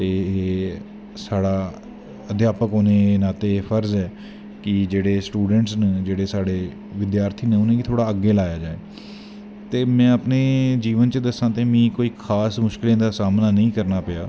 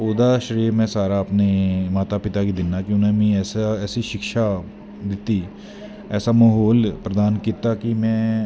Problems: constant background noise